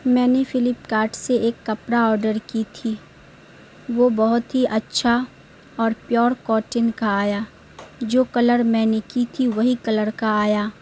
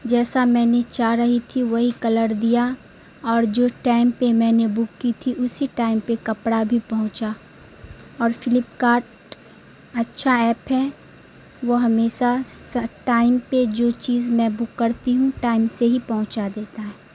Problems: constant background noise